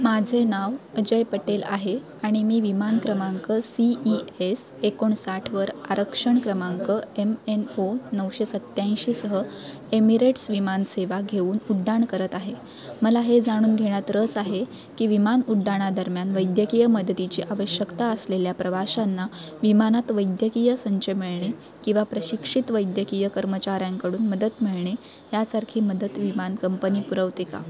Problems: constant background noise, continuous background conversations